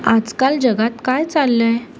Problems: constant background noise